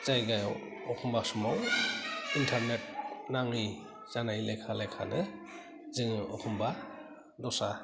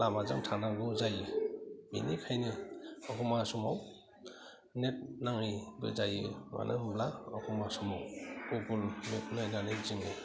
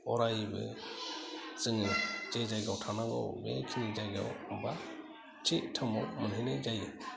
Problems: low volume